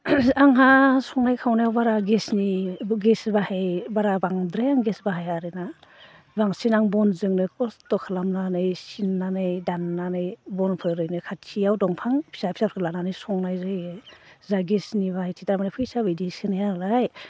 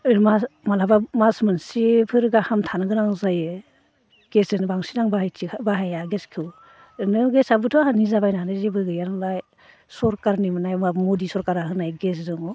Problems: constant background noise